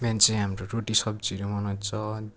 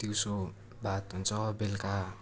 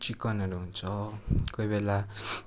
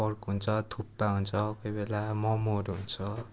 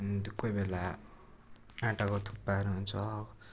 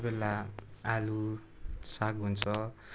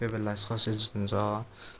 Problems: continuous background conversations